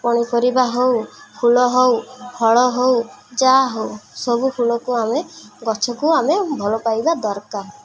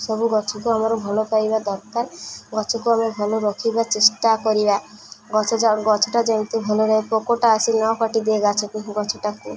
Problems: constant background noise, continuous background conversations